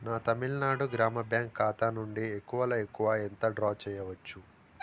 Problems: constant background noise